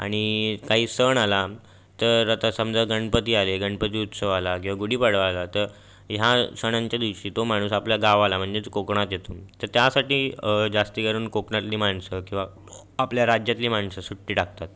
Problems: constant background noise, background conversations at intervals